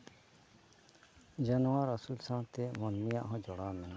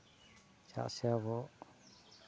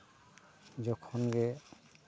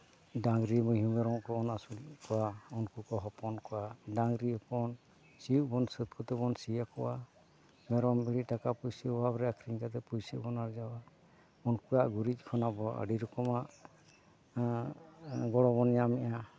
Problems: none marked